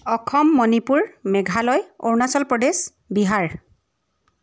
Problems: none marked